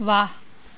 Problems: constant background noise